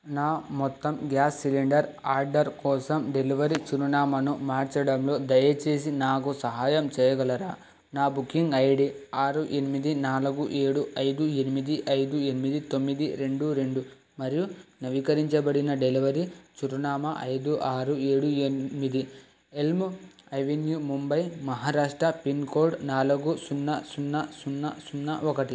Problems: constant background noise